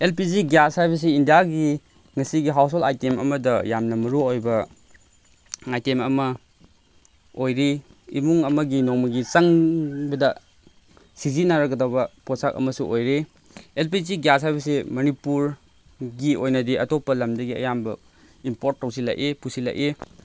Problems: constant background noise